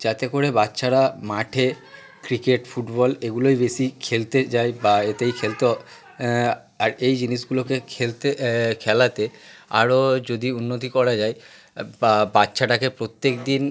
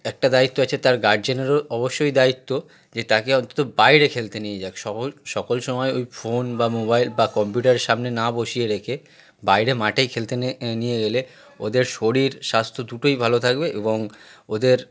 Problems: background sounds at intervals, continuous background conversations